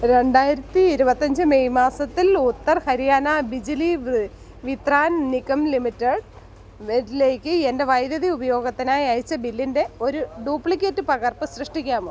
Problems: background sounds at intervals